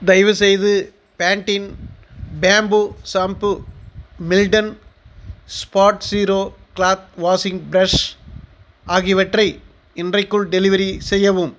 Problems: none marked